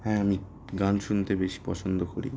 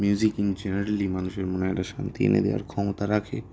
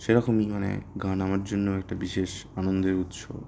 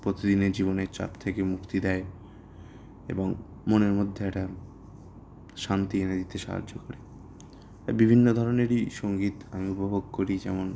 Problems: background sounds at intervals